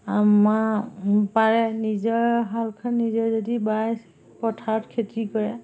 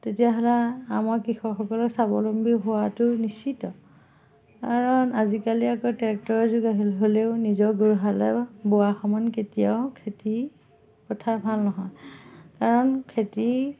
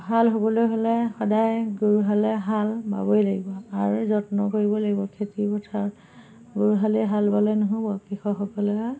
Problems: background sounds at intervals, background conversations at intervals